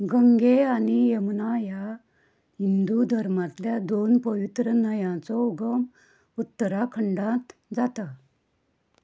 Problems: low volume